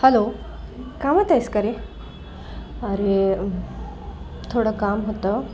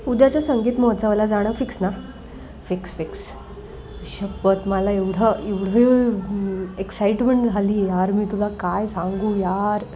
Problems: none marked